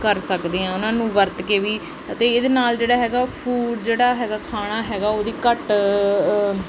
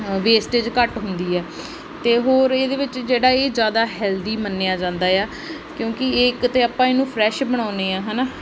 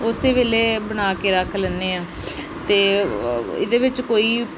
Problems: background sounds at intervals